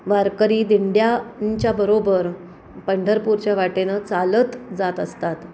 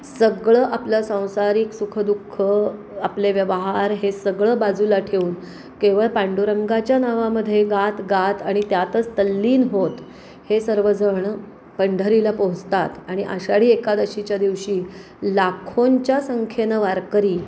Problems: none marked